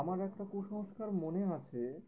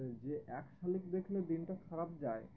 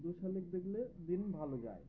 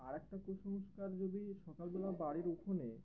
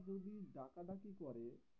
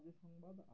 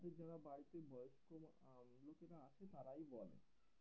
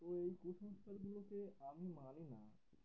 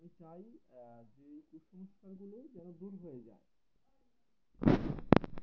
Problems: constant background noise, background conversations at intervals